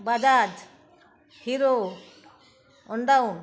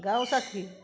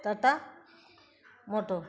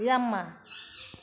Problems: none marked